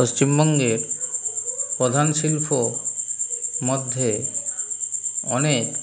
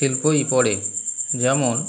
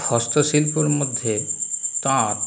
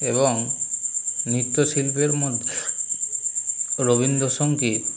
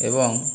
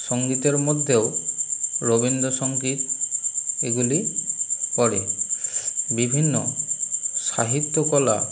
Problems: constant background noise